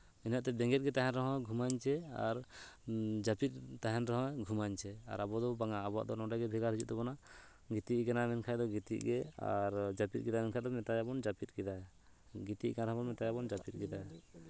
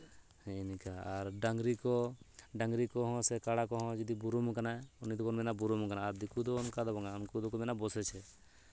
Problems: constant background noise